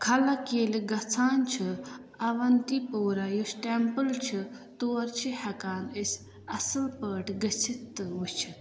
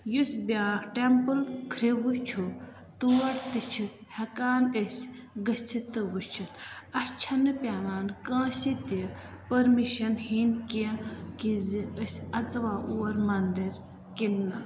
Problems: constant background noise, echo